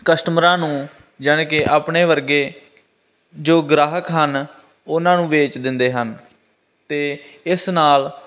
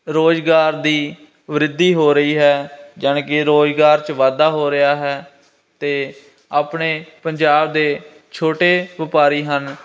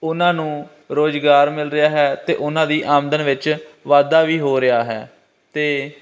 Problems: constant background noise